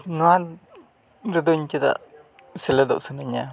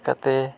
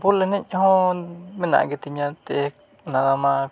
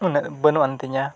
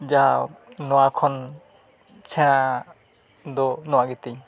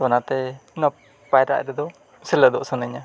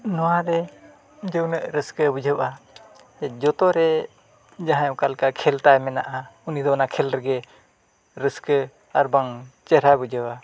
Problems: constant background noise